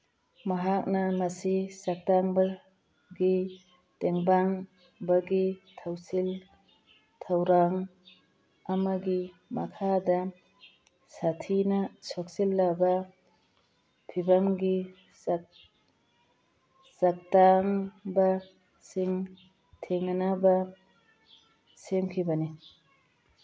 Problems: background sounds at intervals